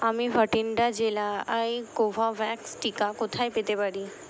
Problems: constant background noise